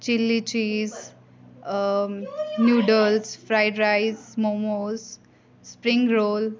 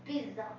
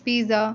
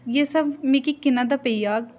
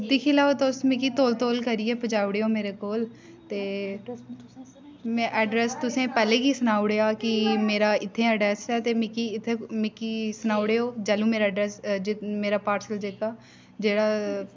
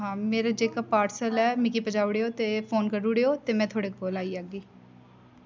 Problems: constant background noise, background conversations at intervals